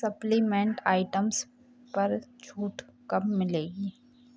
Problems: none marked